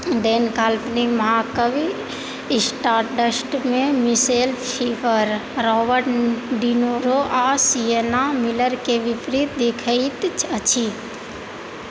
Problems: constant background noise